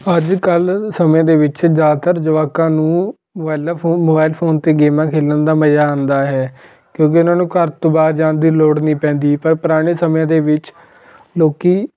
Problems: continuous background conversations